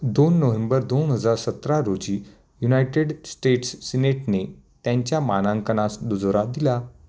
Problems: constant background noise